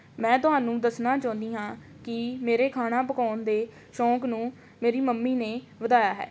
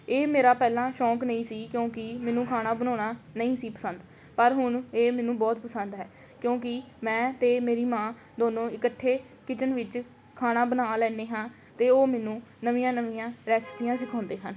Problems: none marked